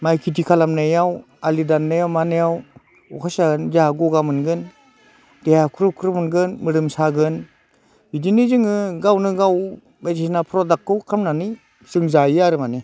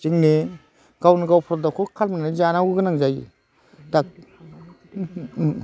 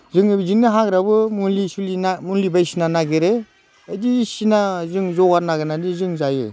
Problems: constant background noise